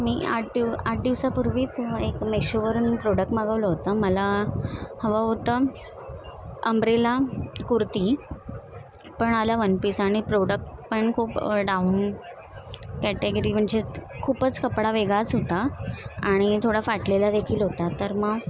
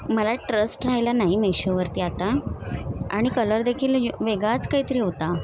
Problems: constant background noise, background conversations at intervals